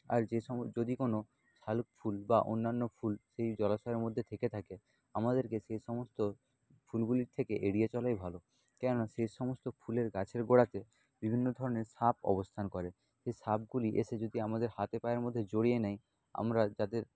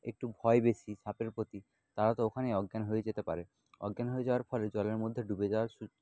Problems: none marked